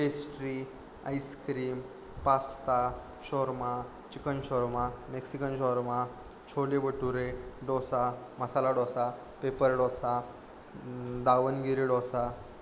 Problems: none marked